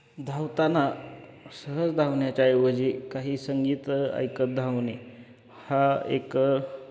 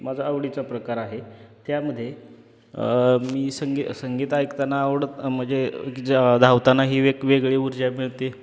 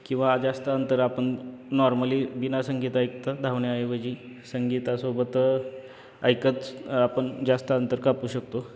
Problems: constant background noise, background conversations at intervals